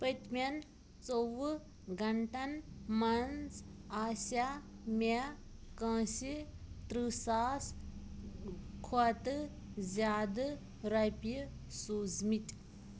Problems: constant background noise